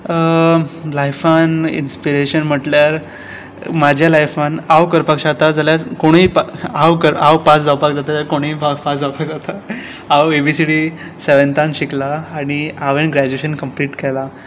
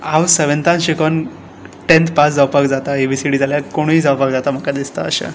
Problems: background sounds at intervals